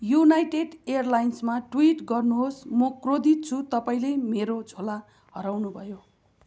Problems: constant background noise